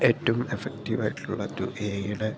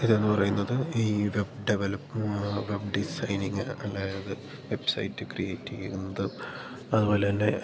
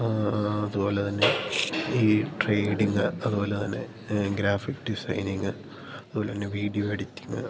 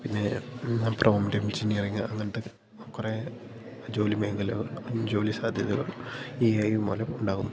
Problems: none marked